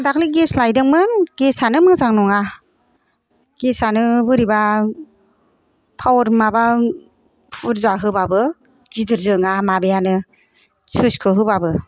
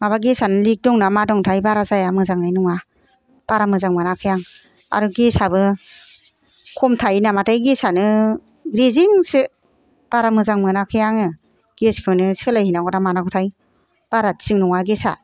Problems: none marked